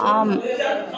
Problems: background conversations at intervals